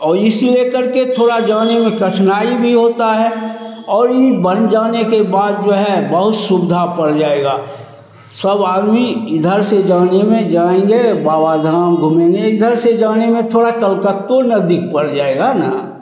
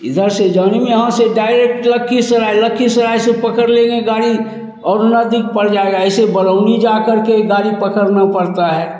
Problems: none marked